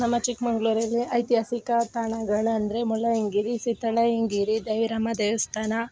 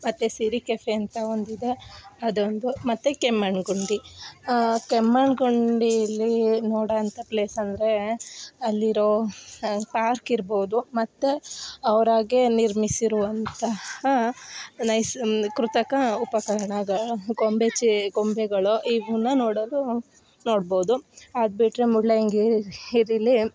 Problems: background sounds at intervals